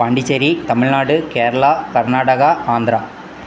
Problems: background sounds at intervals